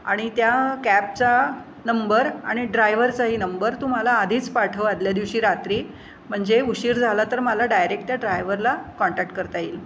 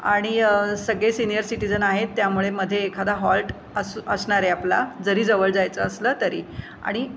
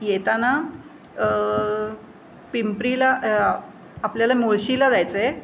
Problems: constant background noise